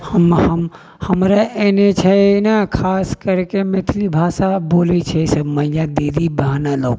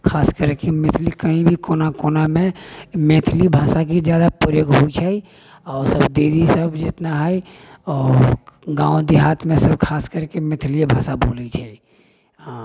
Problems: background sounds at intervals